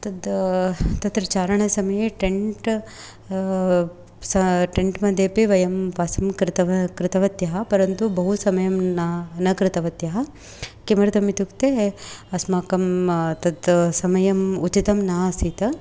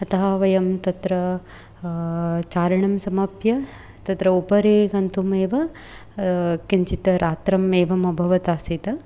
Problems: none marked